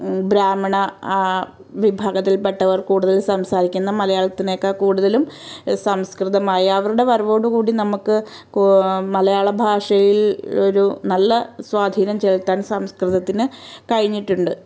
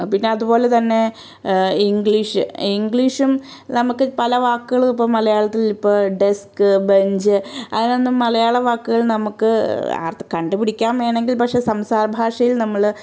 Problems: none marked